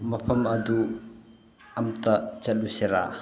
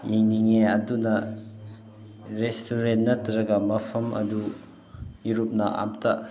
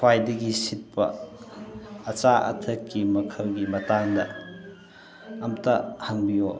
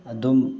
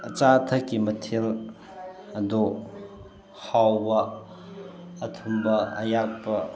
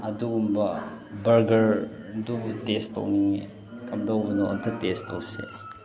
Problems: constant background noise